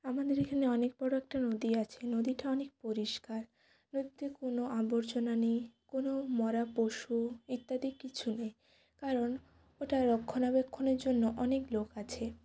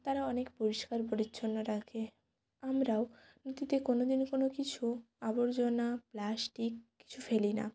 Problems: none marked